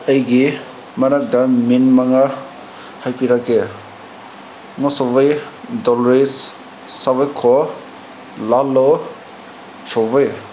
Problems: constant background noise